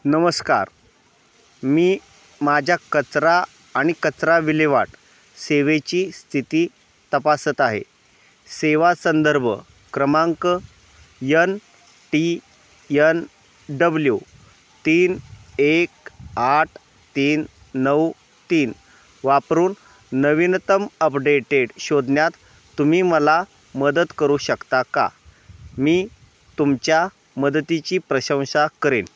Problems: none marked